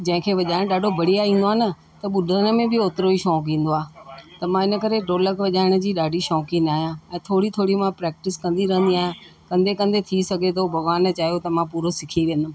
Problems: constant background noise